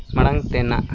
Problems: constant background noise